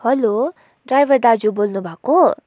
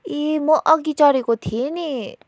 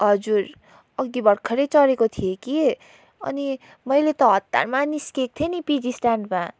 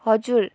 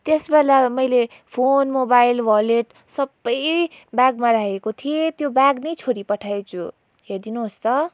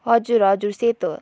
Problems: background sounds at intervals